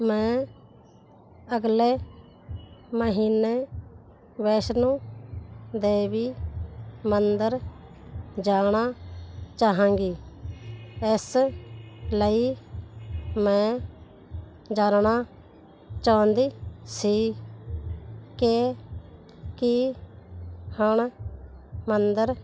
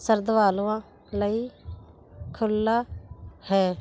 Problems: none marked